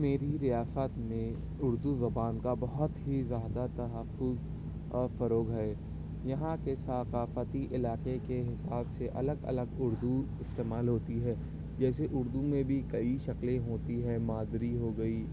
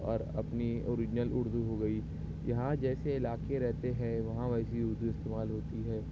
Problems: none marked